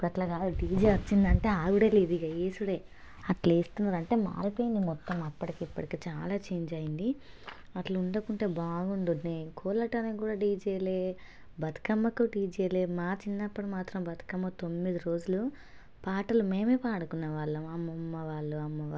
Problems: none marked